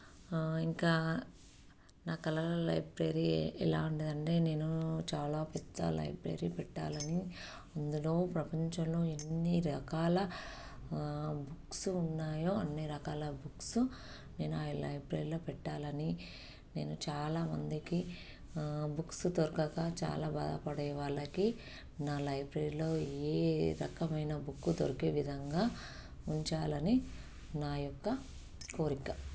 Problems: none marked